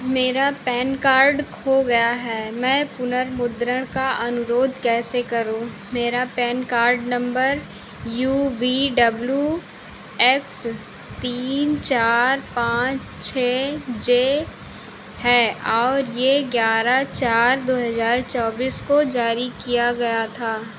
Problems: none marked